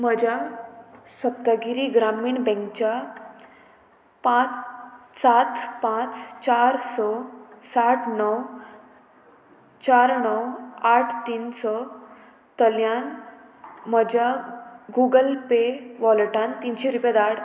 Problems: constant background noise